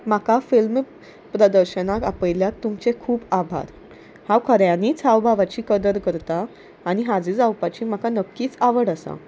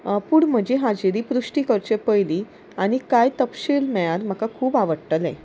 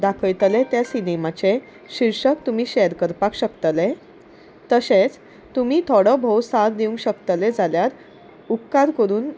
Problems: none marked